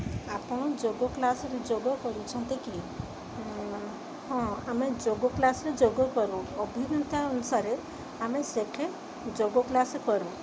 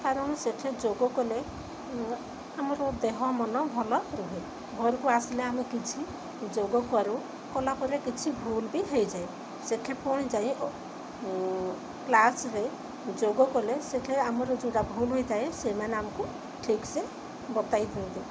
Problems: constant background noise